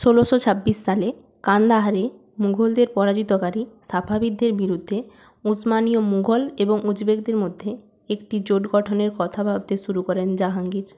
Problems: background sounds at intervals